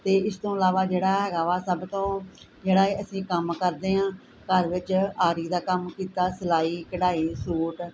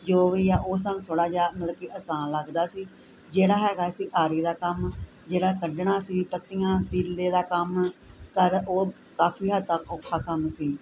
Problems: none marked